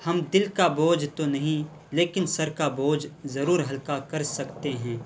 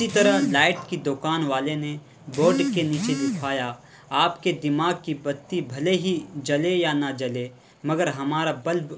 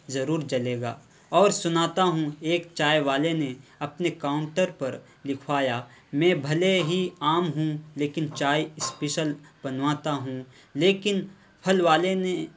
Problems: constant background noise